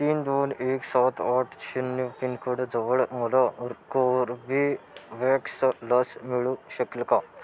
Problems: constant background noise, background conversations at intervals